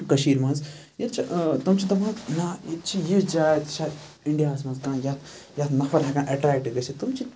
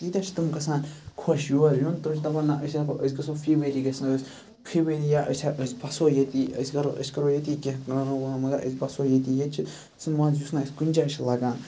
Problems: background sounds at intervals